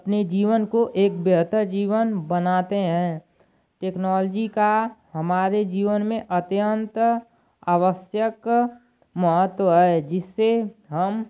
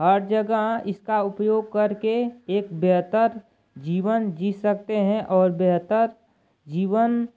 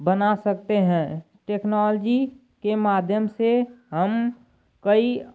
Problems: none marked